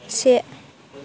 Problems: constant background noise